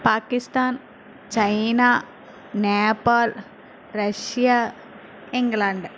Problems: constant background noise